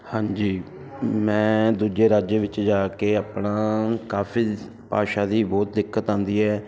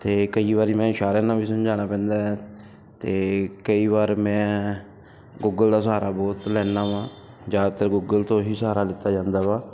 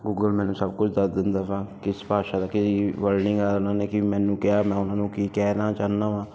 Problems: none marked